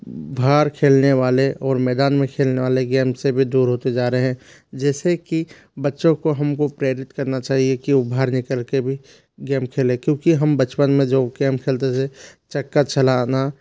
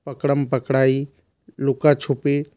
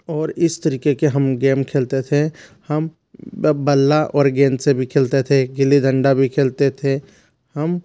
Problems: constant background noise